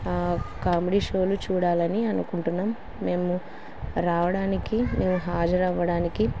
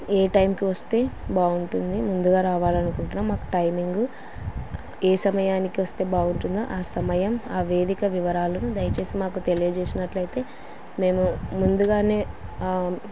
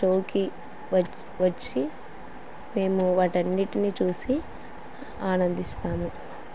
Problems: constant background noise